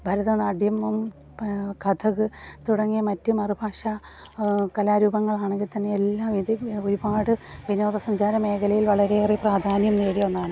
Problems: background sounds at intervals